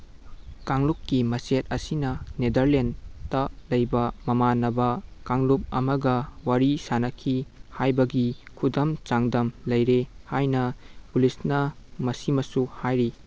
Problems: none marked